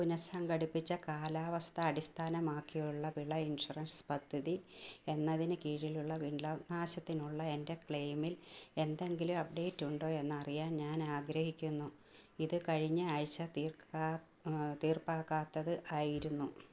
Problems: low volume